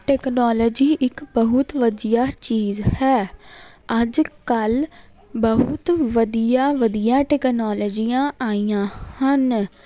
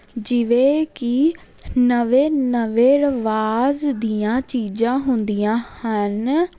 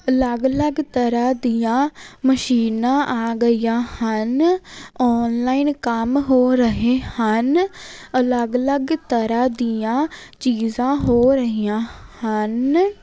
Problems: constant background noise